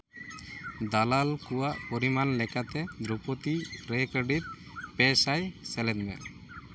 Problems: constant background noise